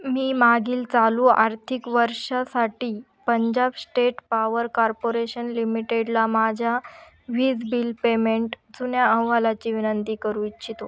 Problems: background sounds at intervals